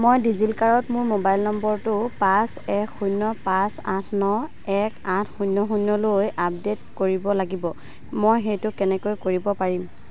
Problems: none marked